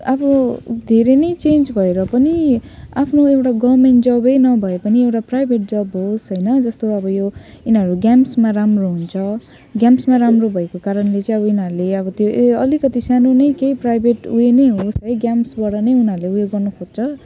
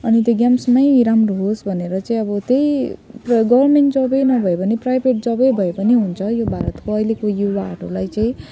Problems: none marked